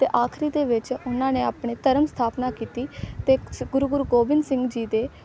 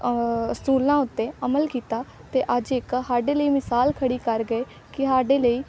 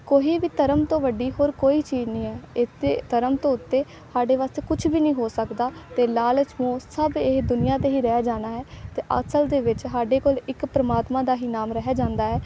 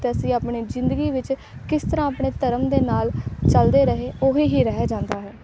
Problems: none marked